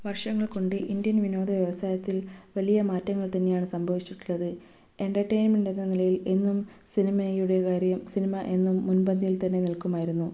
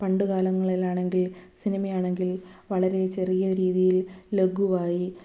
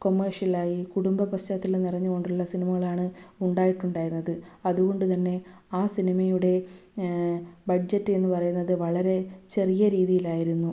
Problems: none marked